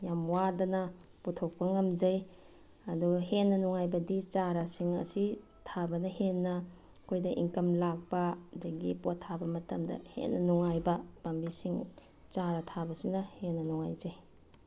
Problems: none marked